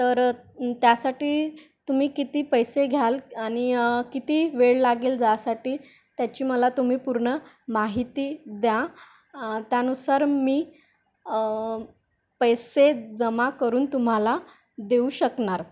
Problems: none marked